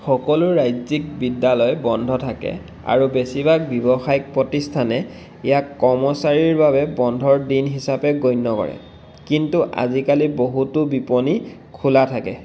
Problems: constant background noise